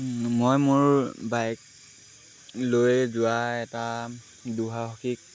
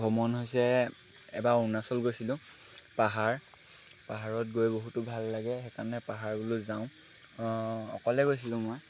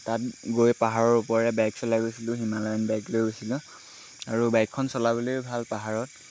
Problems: constant background noise